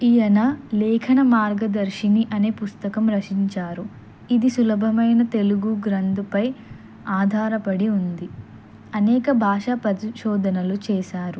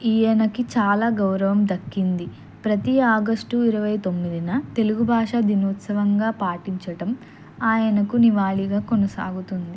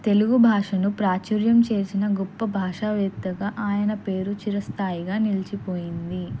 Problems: constant background noise